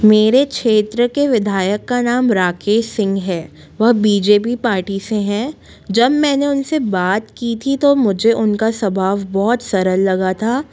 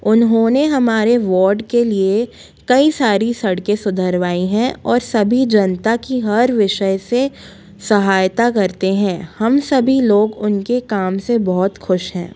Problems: constant background noise